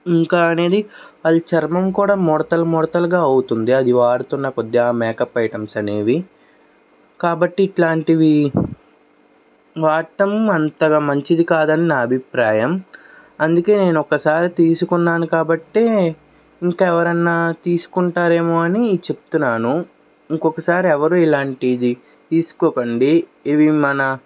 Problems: background sounds at intervals